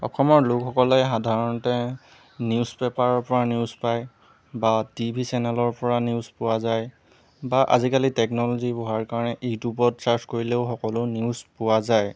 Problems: background sounds at intervals